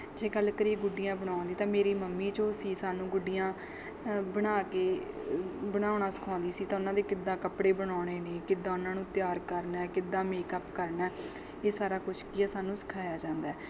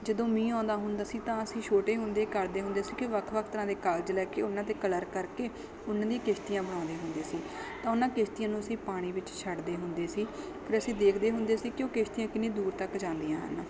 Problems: background sounds at intervals, background conversations at intervals